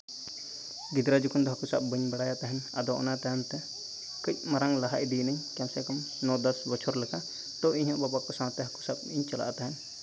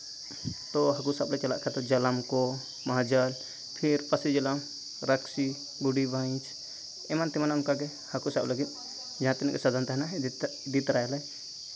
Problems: none marked